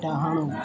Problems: constant background noise